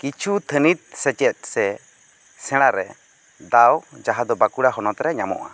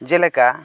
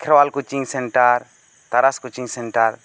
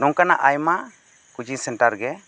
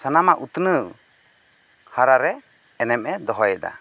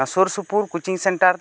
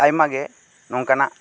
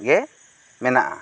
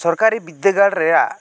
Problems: constant background noise